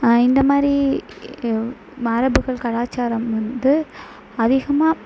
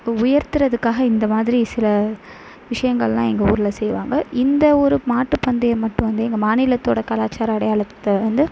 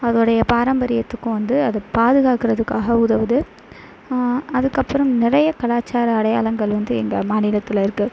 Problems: background sounds at intervals